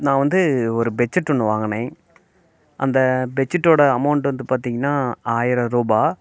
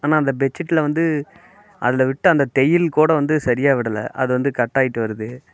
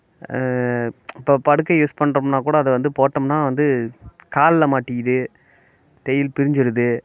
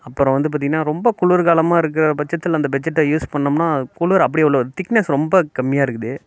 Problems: constant background noise